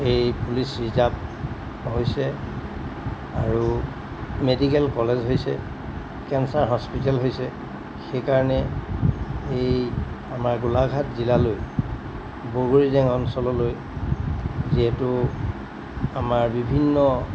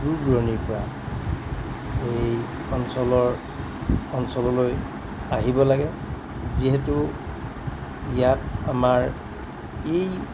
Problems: background sounds at intervals